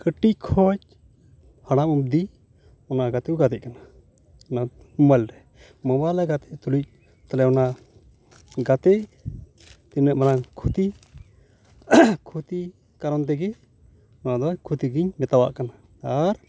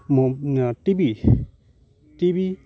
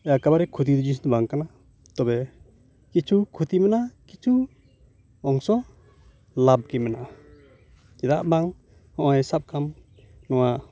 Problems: background sounds at intervals